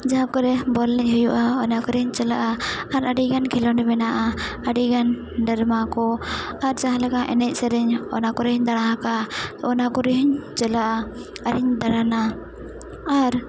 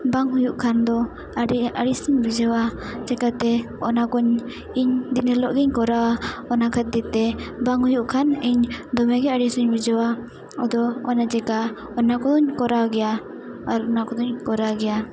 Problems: constant background noise